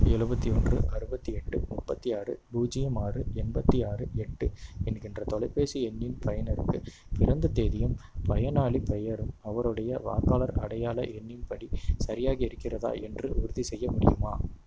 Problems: constant background noise